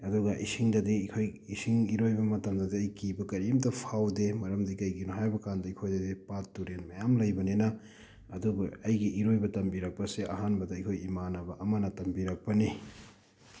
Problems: none marked